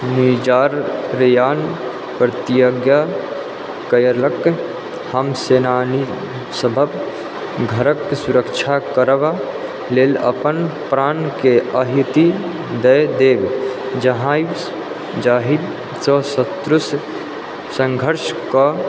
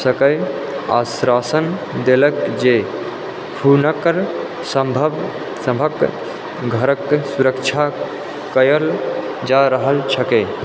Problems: constant background noise